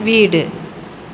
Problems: constant background noise